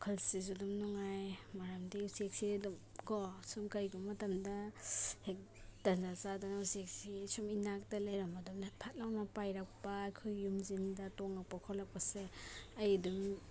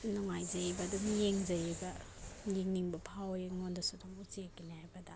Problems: background sounds at intervals